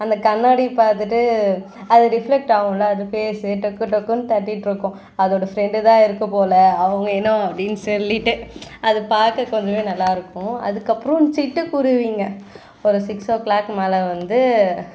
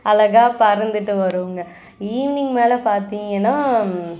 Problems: constant background noise, background conversations at intervals